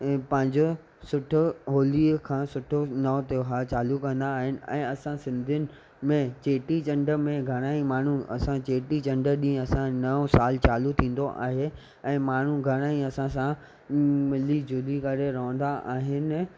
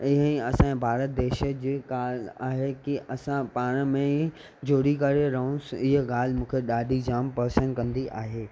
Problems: none marked